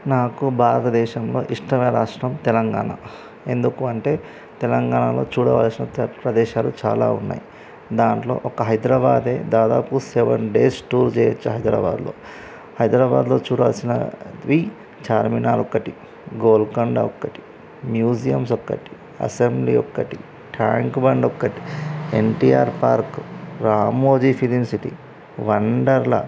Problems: constant background noise, background conversations at intervals